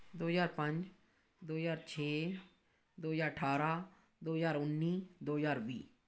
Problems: background sounds at intervals